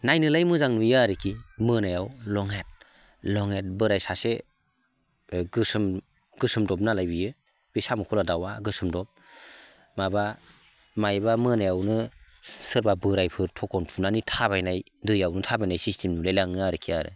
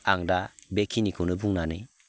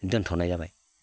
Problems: constant background noise